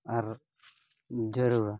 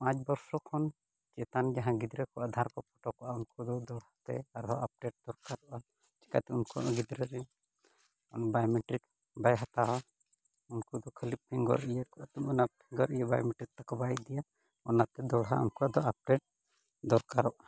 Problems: background sounds at intervals